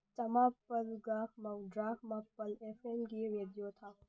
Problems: low volume